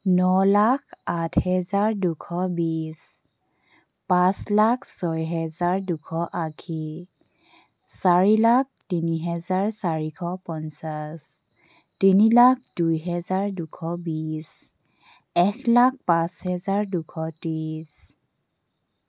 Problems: background sounds at intervals